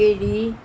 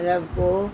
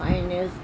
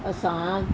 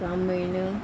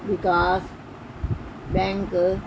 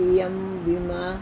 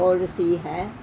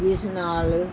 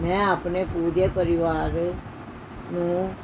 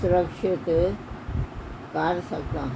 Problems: background sounds at intervals